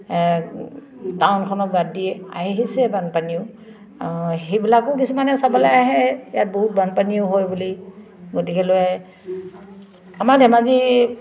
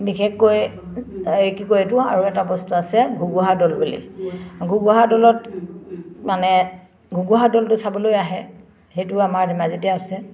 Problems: none marked